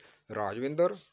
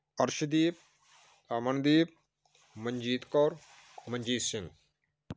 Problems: background sounds at intervals